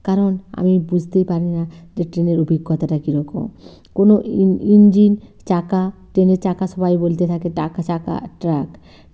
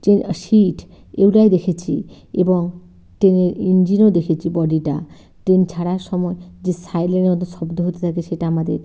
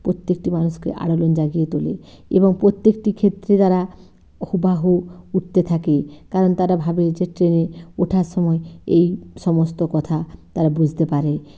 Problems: constant background noise, low volume